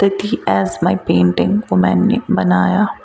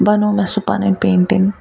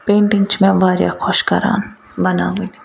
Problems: constant background noise